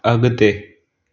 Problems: none marked